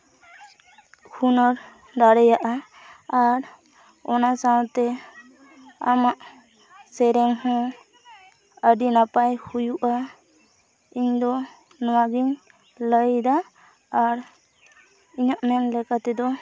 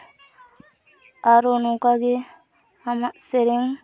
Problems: constant background noise, continuous background conversations